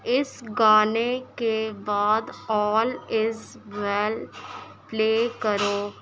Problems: constant background noise